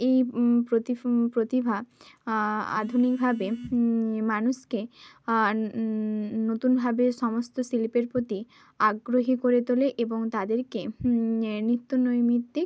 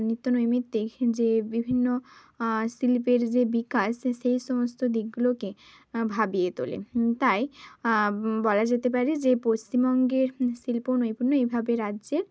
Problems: none marked